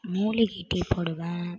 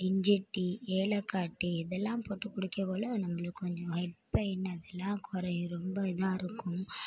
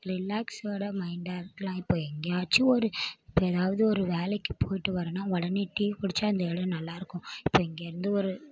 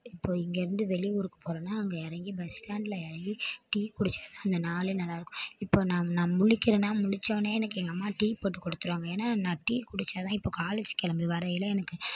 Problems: low volume